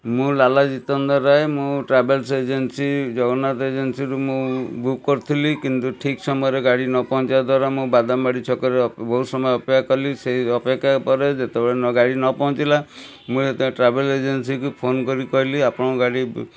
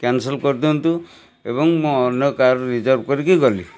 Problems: constant background noise